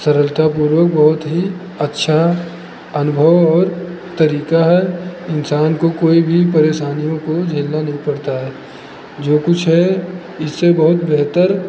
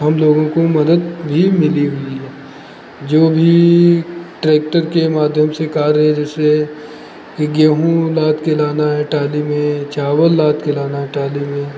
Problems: background conversations at intervals